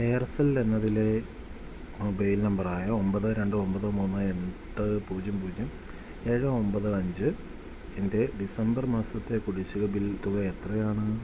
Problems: constant background noise